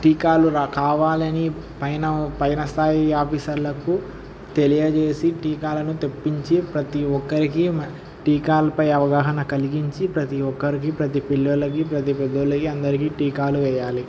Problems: none marked